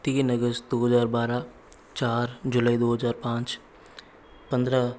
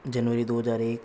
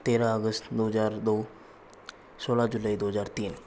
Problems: constant background noise